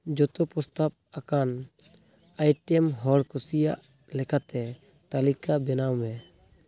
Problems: constant background noise